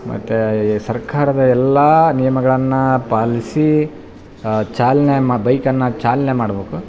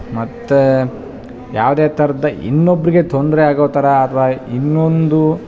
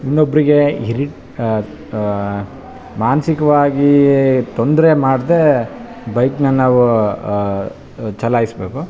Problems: background conversations at intervals